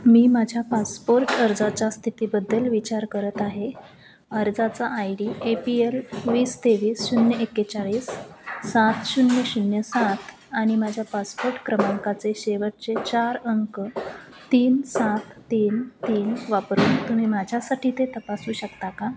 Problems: none marked